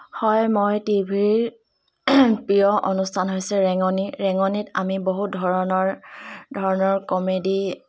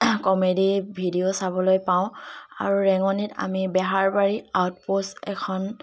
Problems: background sounds at intervals, continuous background conversations